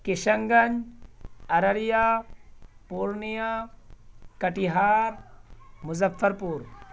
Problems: none marked